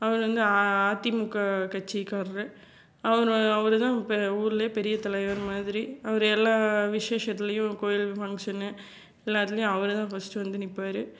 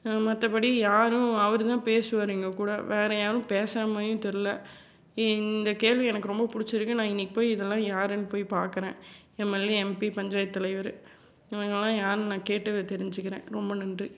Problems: none marked